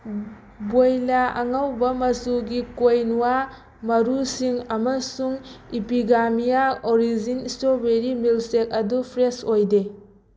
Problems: constant background noise